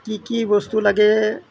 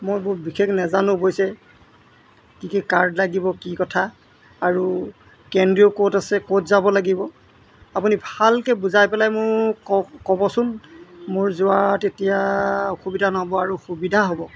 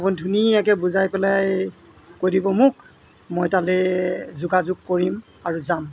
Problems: none marked